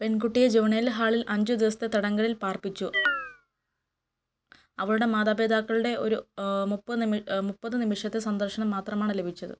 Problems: background sounds at intervals